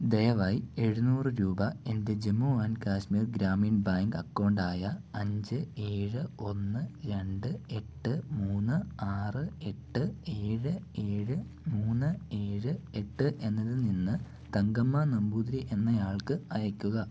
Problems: low volume